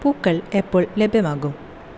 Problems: constant background noise